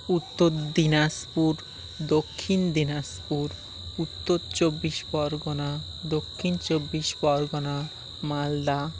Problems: background sounds at intervals, background conversations at intervals